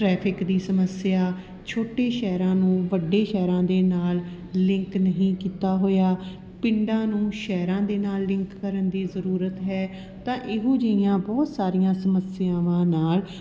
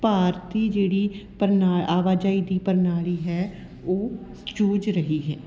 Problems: constant background noise